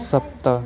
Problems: background conversations at intervals